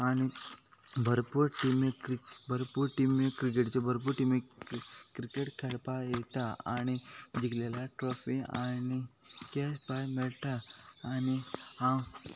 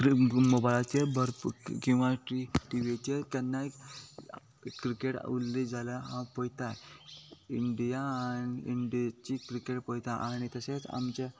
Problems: constant background noise